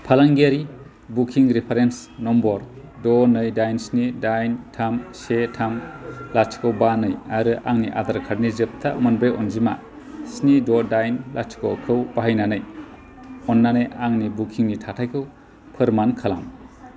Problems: constant background noise